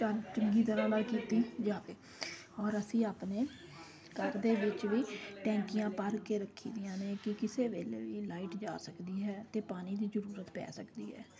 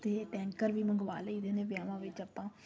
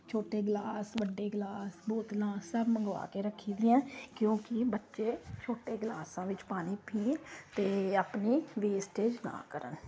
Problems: constant background noise